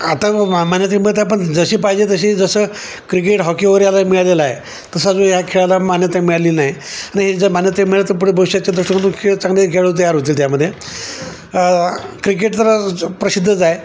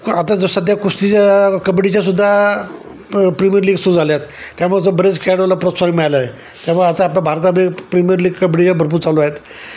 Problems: constant background noise, background conversations at intervals